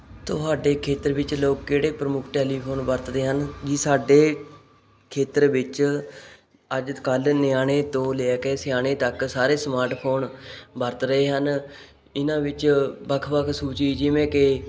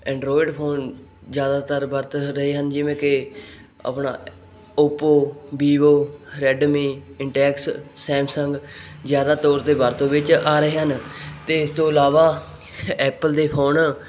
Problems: none marked